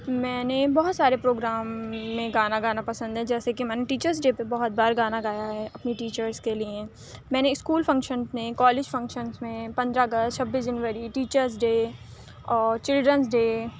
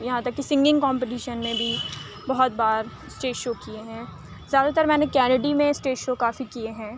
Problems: constant background noise